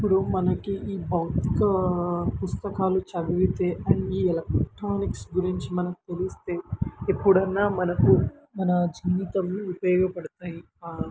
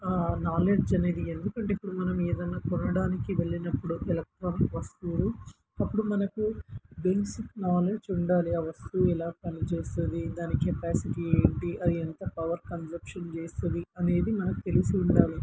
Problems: constant background noise